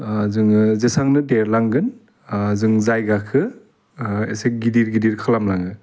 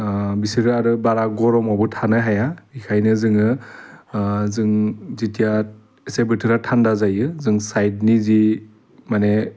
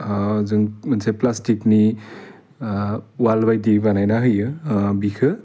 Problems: constant background noise